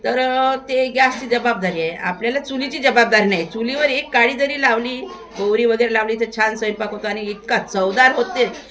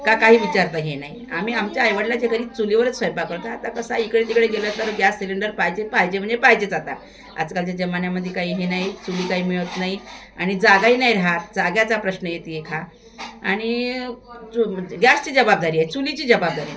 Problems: constant background noise, continuous background conversations